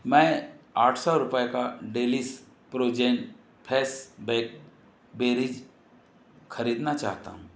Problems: constant background noise